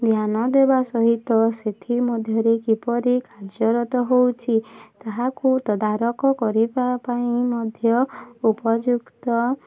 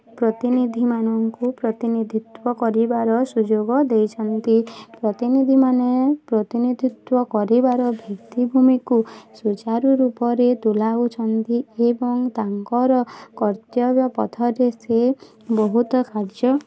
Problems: constant background noise, continuous background conversations